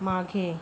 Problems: constant background noise